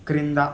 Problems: constant background noise